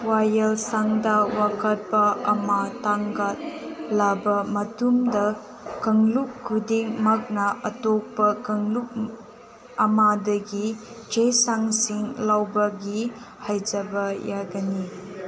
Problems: constant background noise